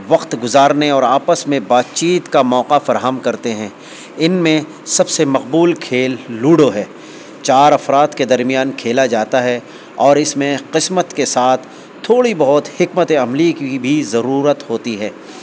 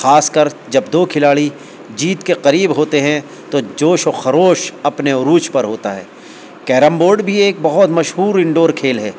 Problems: constant background noise